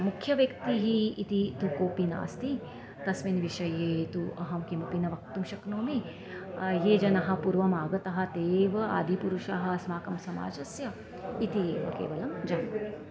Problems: constant background noise